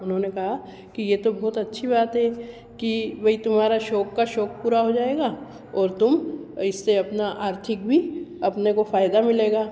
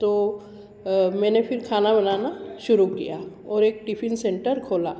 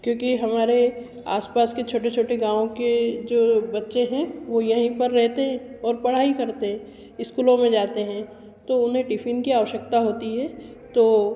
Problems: constant background noise, echo